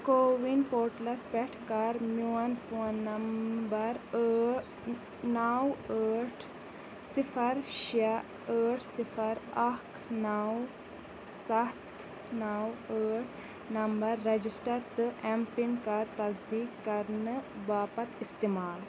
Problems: constant background noise